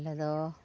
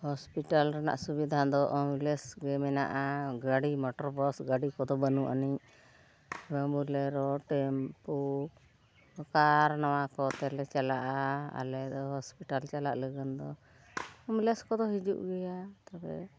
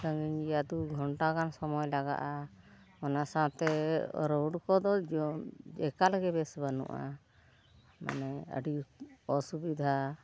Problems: background sounds at intervals, background conversations at intervals